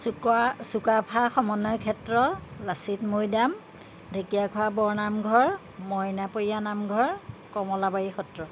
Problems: none marked